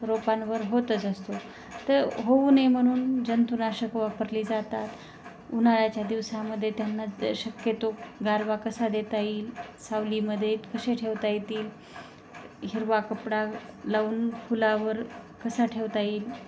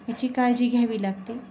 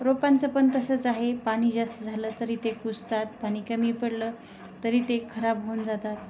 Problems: constant background noise